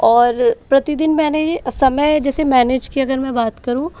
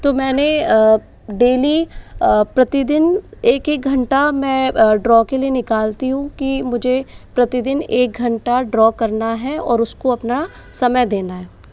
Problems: background sounds at intervals